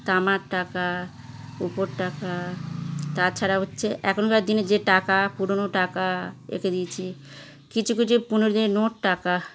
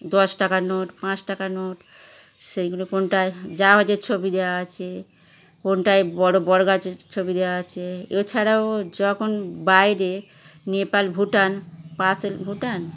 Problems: constant background noise